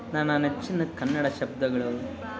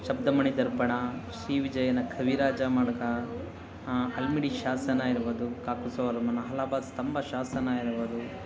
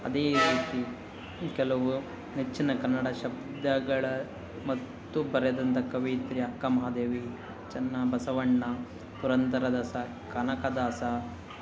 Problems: background conversations at intervals